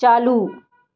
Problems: none marked